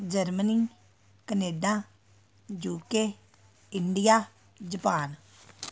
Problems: continuous background conversations